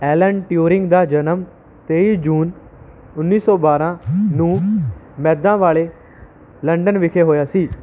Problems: background sounds at intervals